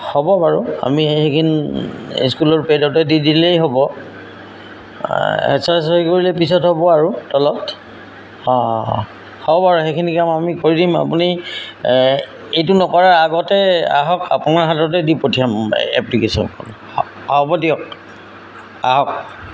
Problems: none marked